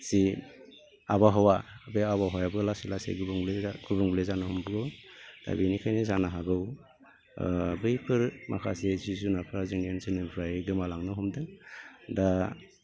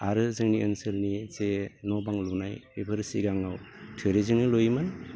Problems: constant background noise